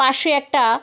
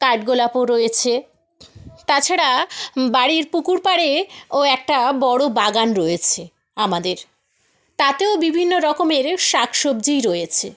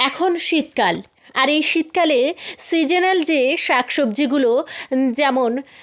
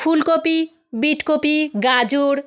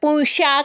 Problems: none marked